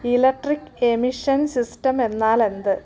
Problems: background sounds at intervals